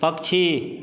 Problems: none marked